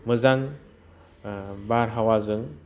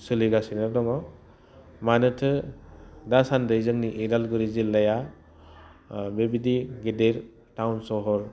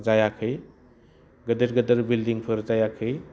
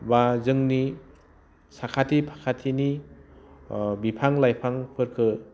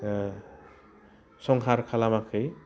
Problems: low volume